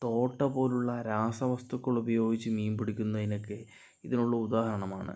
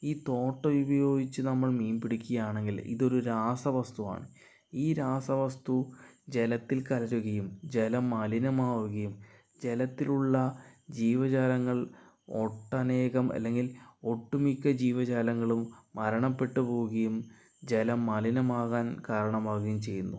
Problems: low volume